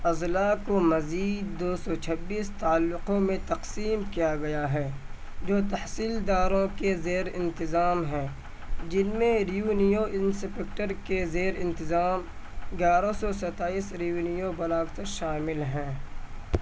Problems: constant background noise